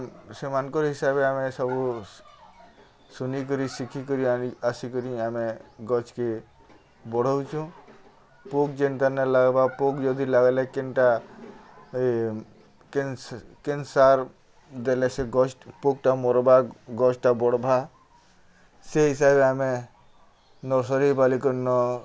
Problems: none marked